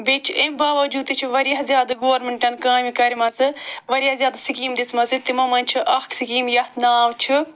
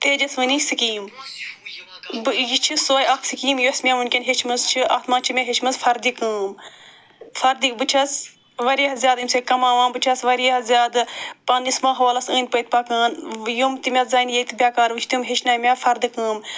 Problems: none marked